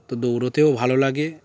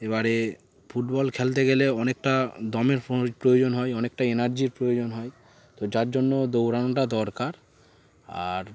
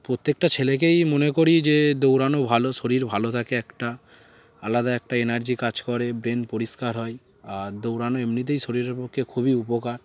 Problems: constant background noise, background conversations at intervals